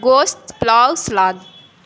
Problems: constant background noise